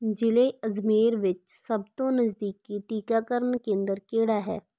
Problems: none marked